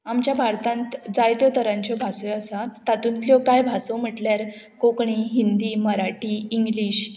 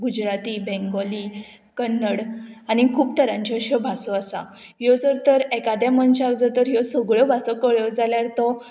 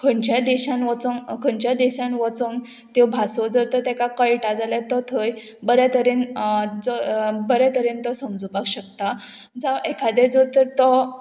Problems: constant background noise